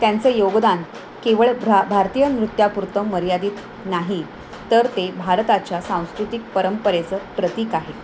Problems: none marked